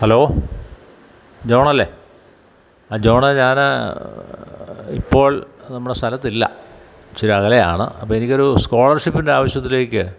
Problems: background sounds at intervals